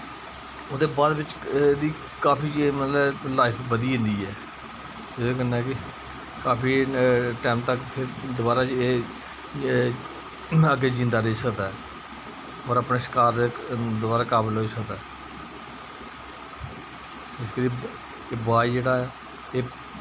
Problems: constant background noise